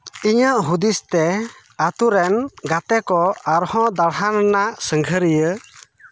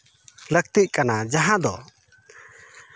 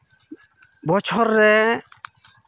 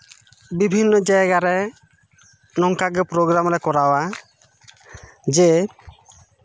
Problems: none marked